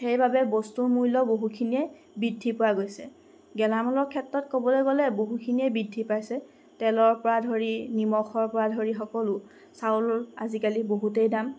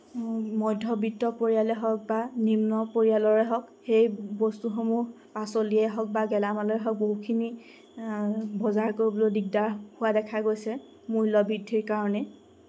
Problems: constant background noise